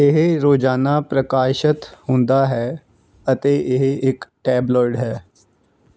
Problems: background sounds at intervals